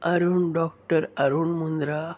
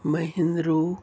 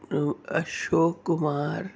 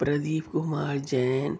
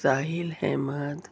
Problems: none marked